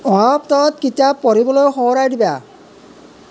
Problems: background conversations at intervals